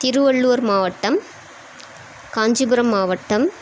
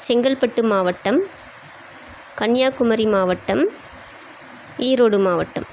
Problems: constant background noise